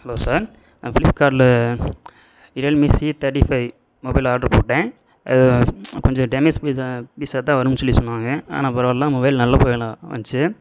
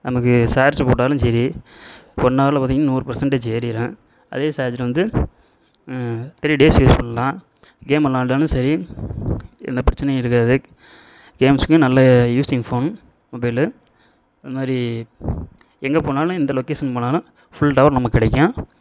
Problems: background sounds at intervals